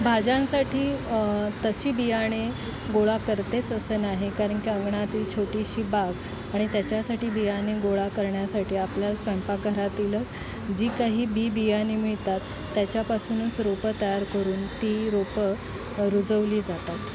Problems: none marked